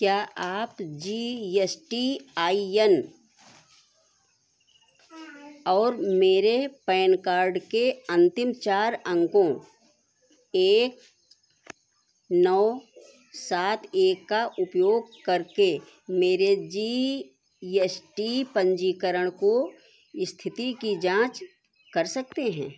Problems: none marked